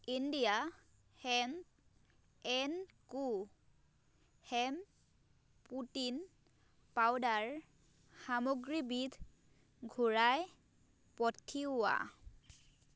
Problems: background sounds at intervals